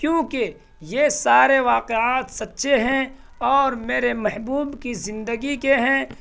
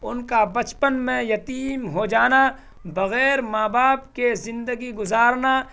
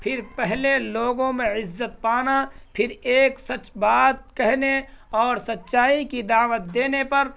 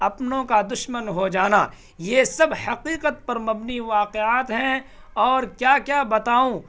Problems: constant background noise